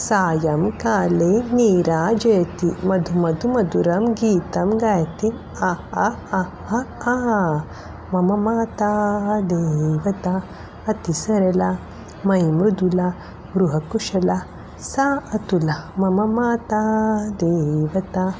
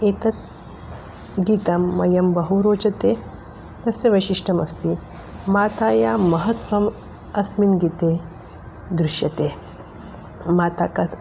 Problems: none marked